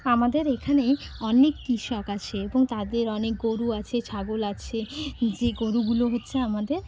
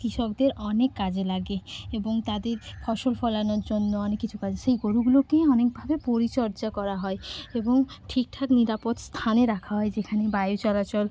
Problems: none marked